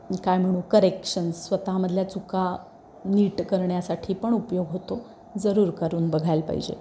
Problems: background sounds at intervals